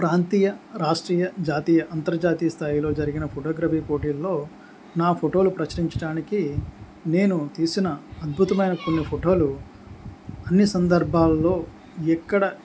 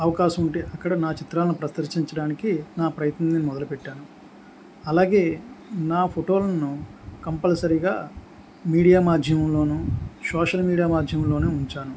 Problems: background conversations at intervals